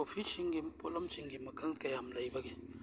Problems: background sounds at intervals